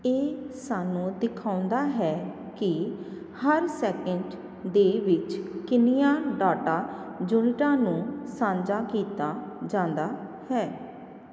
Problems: none marked